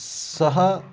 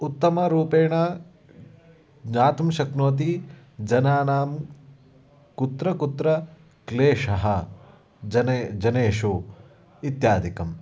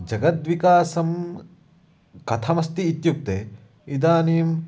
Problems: none marked